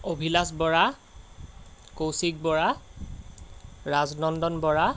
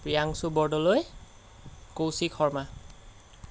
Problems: background sounds at intervals